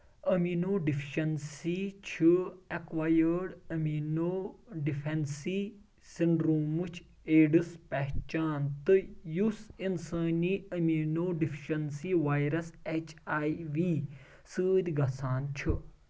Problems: background sounds at intervals